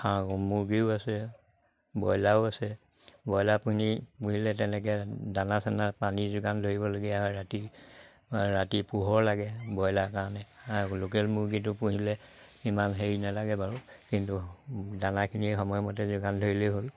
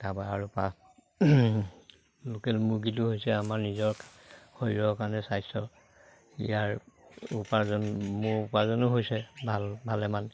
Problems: none marked